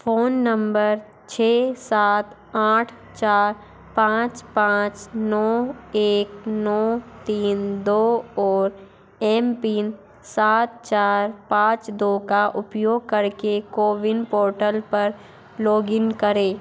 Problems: constant background noise